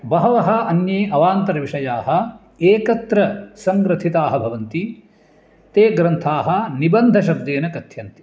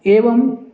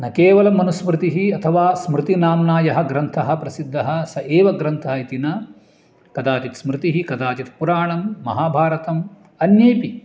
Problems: none marked